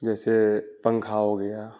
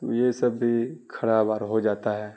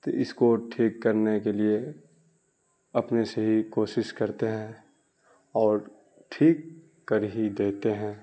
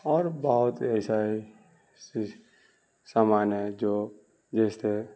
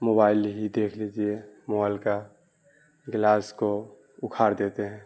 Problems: constant background noise